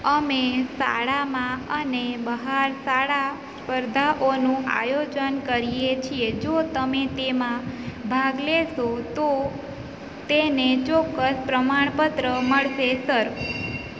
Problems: constant background noise